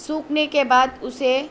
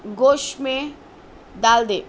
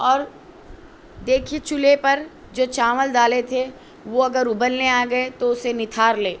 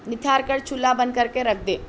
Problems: constant background noise